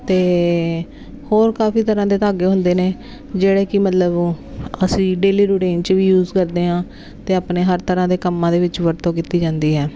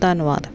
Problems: constant background noise